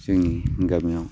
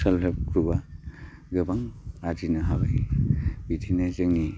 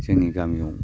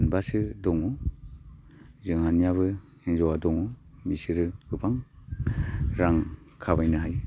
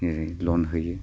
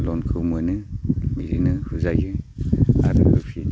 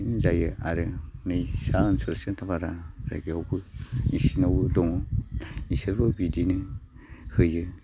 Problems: low volume